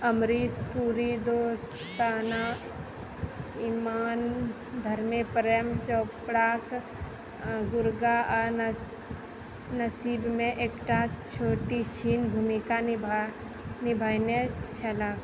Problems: background sounds at intervals